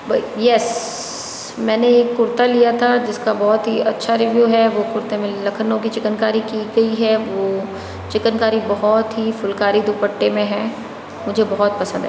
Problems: constant background noise, background conversations at intervals